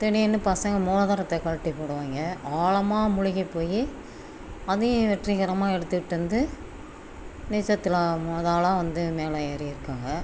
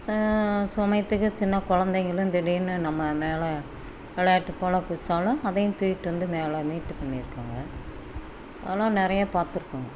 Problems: constant background noise